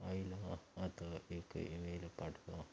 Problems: background sounds at intervals